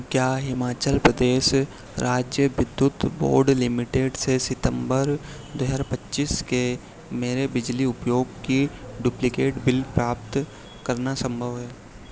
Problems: none marked